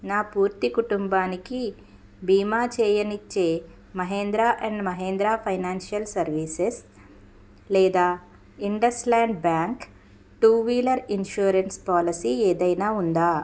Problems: none marked